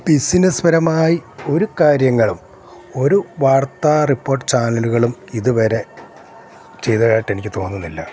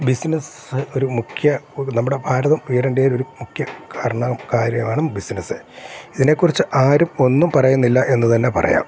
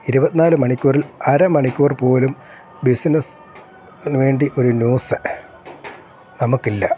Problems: constant background noise